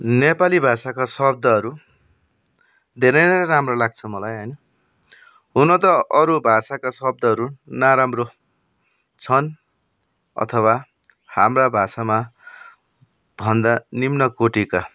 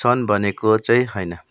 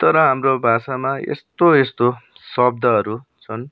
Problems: background sounds at intervals